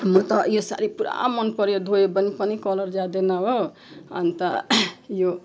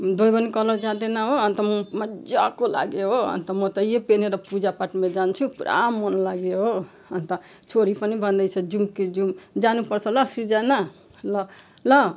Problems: none marked